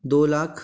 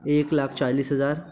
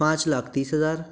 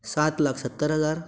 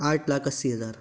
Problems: background sounds at intervals